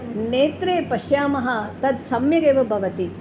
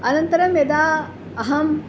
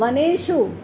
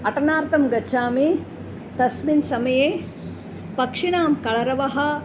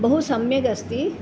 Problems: constant background noise